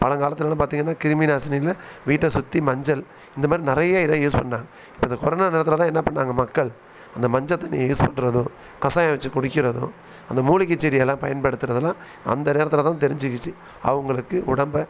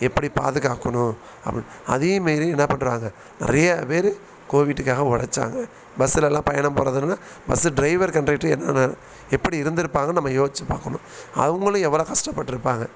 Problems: background sounds at intervals